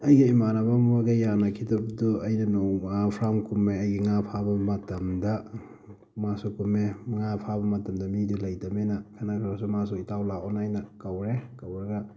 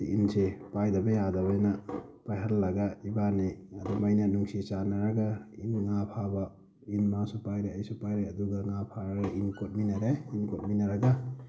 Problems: constant background noise